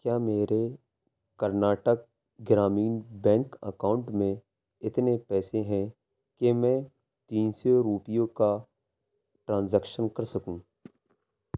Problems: background sounds at intervals